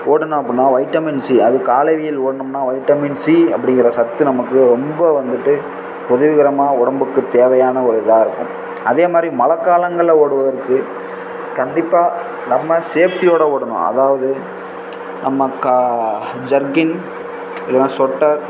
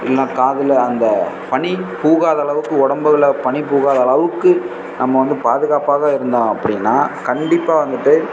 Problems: constant background noise